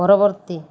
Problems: constant background noise